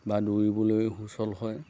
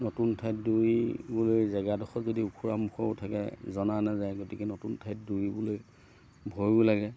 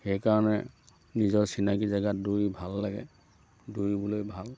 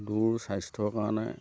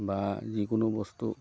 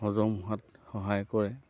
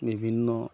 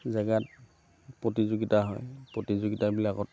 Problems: none marked